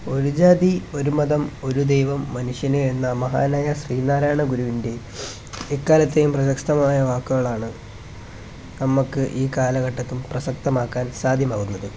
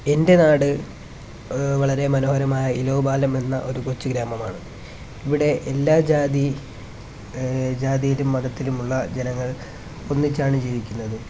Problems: constant background noise